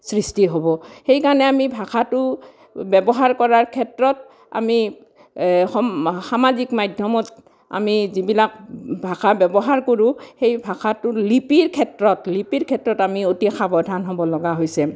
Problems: background sounds at intervals